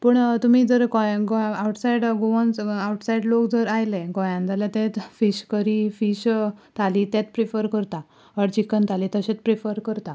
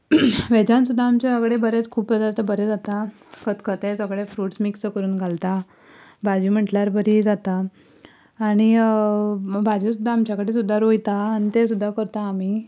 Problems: background sounds at intervals